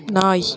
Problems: continuous background conversations